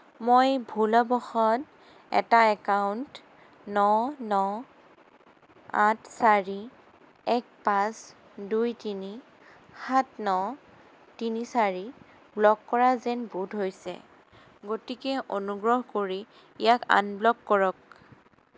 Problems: none marked